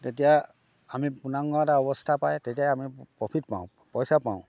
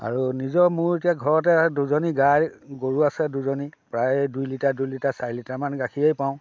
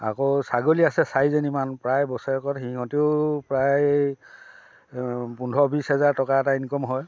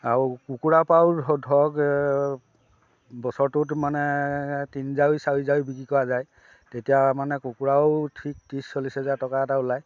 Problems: background sounds at intervals